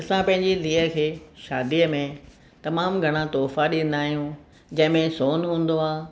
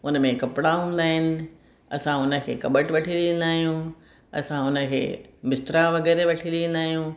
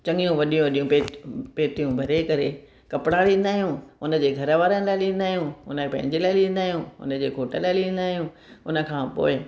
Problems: none marked